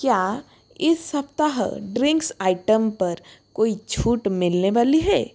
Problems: constant background noise